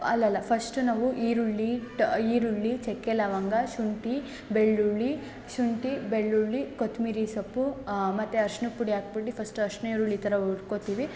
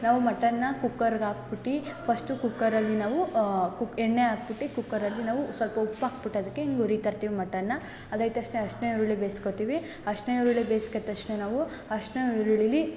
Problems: none marked